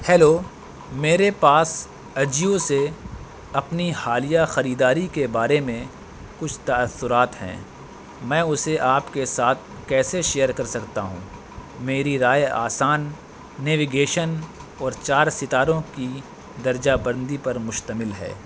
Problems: constant background noise